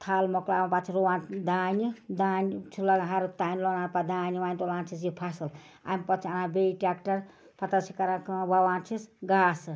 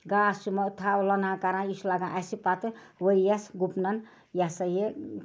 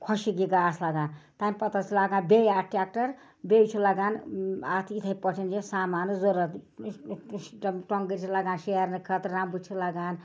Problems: background sounds at intervals